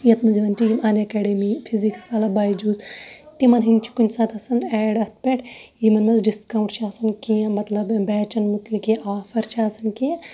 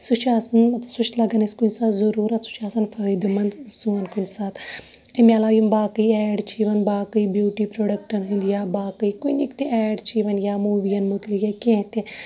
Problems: background sounds at intervals, background conversations at intervals